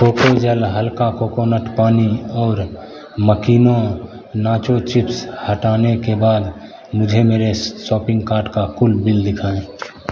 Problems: constant background noise